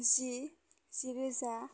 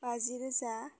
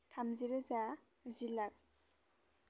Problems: none marked